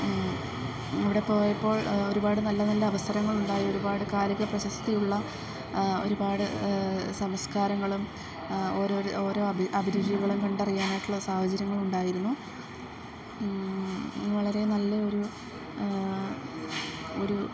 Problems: background sounds at intervals